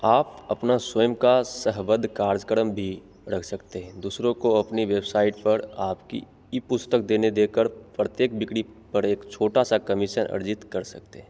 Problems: background sounds at intervals